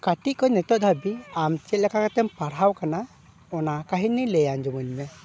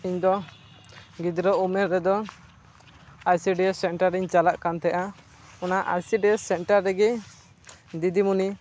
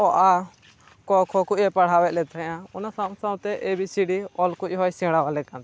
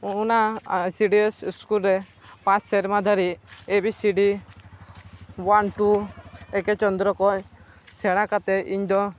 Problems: none marked